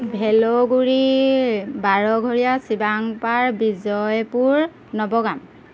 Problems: none marked